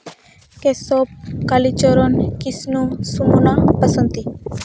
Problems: background sounds at intervals